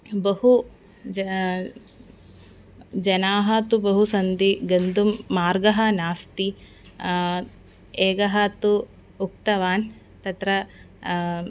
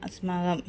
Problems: background sounds at intervals, background conversations at intervals